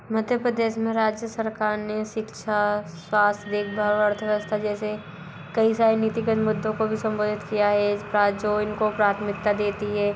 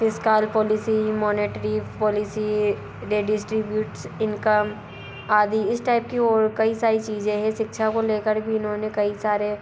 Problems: constant background noise